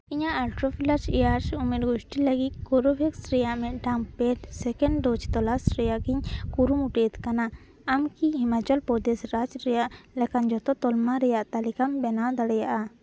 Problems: none marked